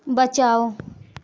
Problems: constant background noise, continuous background conversations